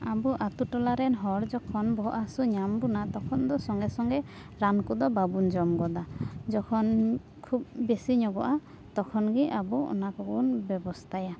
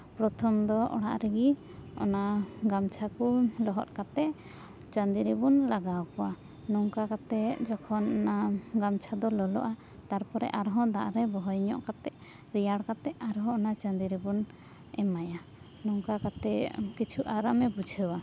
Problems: none marked